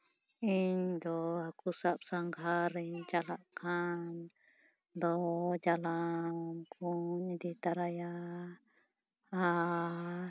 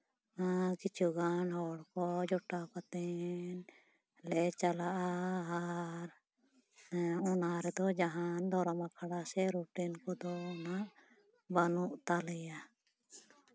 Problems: none marked